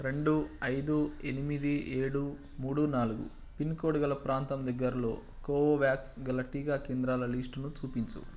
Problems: constant background noise